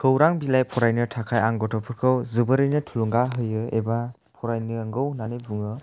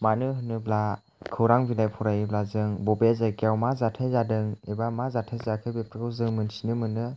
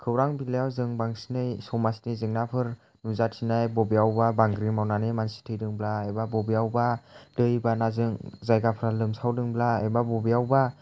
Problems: none marked